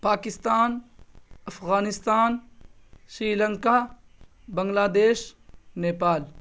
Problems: constant background noise